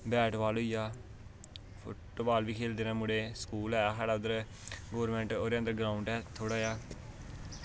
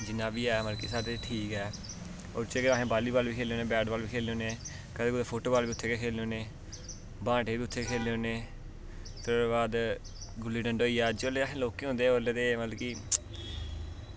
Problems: none marked